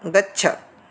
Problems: none marked